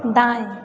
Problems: constant background noise